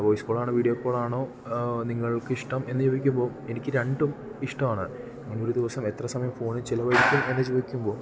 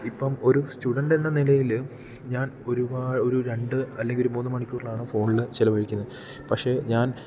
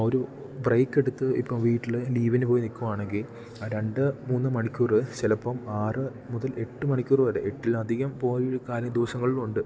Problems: low volume